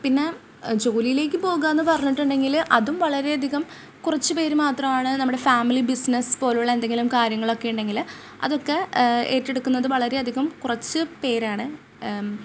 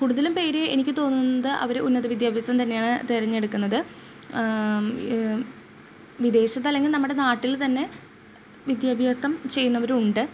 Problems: none marked